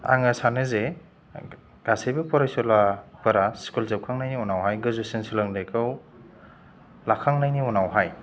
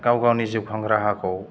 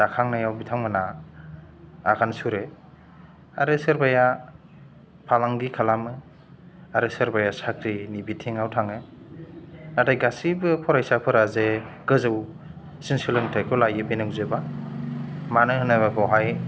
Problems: low volume